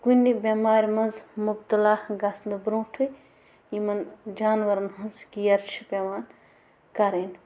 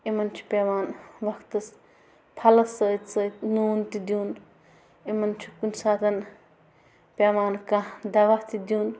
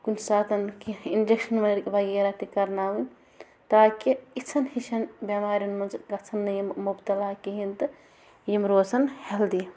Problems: background sounds at intervals